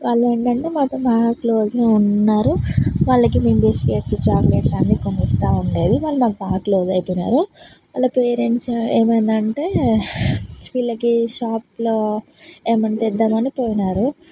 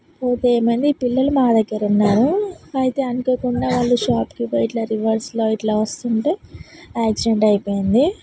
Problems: none marked